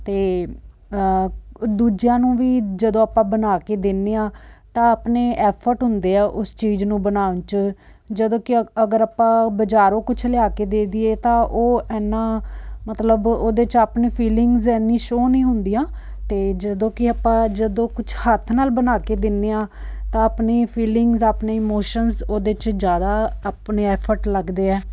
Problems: none marked